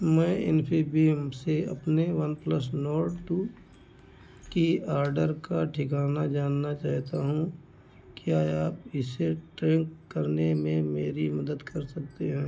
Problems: none marked